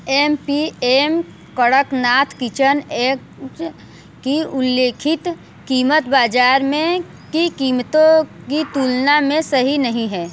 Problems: none marked